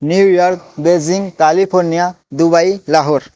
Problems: background sounds at intervals